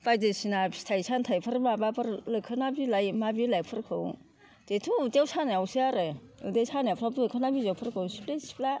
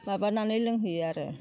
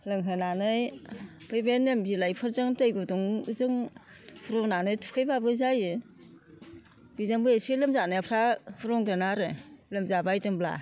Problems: constant background noise